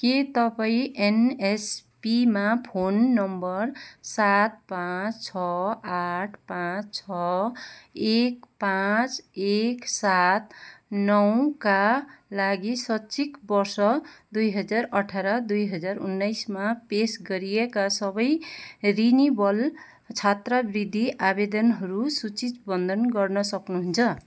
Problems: none marked